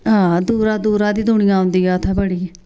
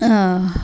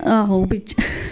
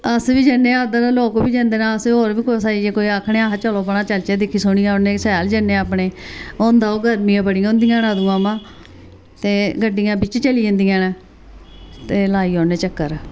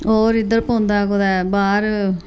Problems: constant background noise